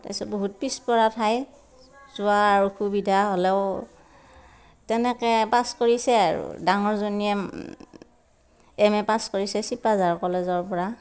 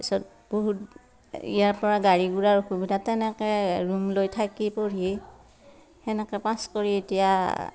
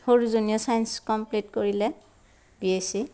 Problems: none marked